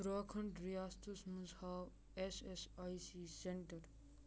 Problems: none marked